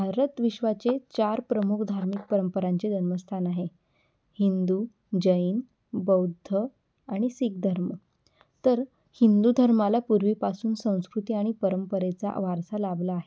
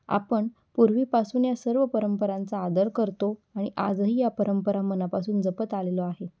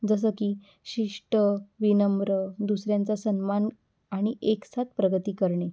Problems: background sounds at intervals